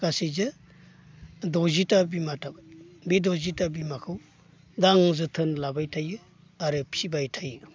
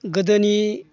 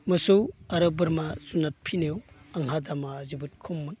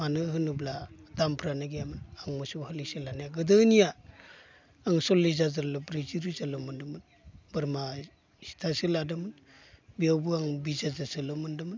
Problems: constant background noise